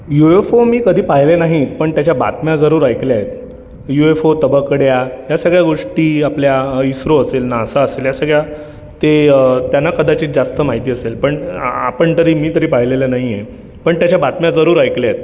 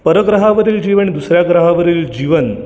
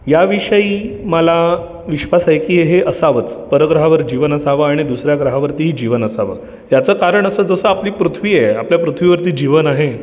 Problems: none marked